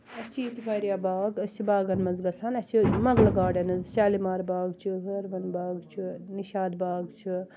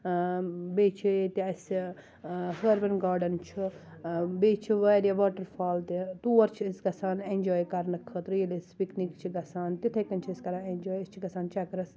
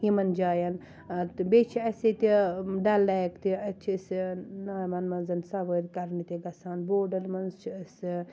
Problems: none marked